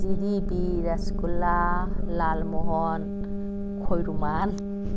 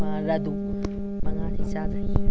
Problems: constant background noise, background conversations at intervals